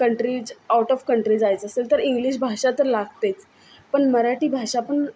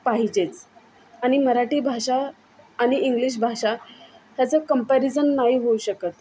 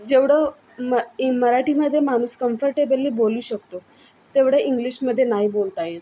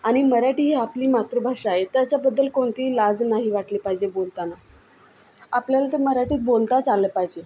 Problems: constant background noise, background conversations at intervals